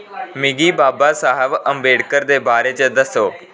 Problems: none marked